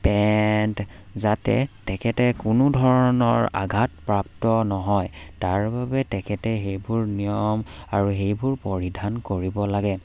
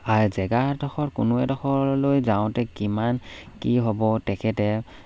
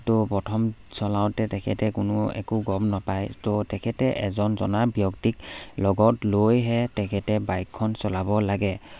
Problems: background sounds at intervals